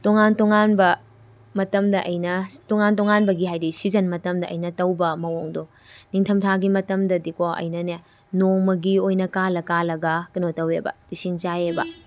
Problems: background sounds at intervals